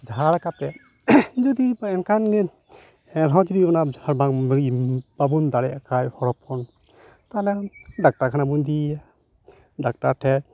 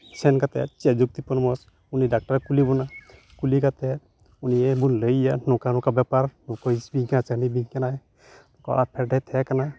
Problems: background sounds at intervals